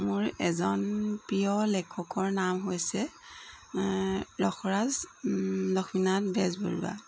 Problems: constant background noise